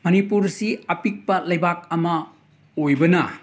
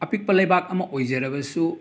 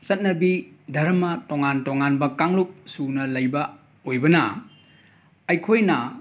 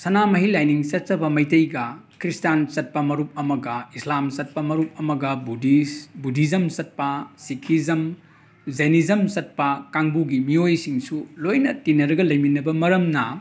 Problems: background sounds at intervals